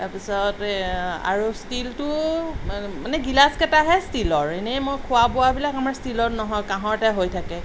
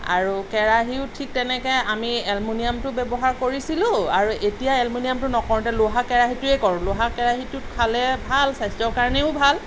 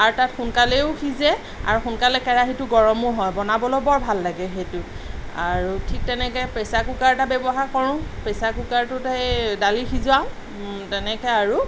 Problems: constant background noise